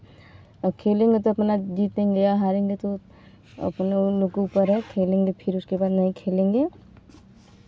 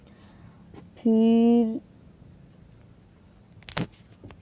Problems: background sounds at intervals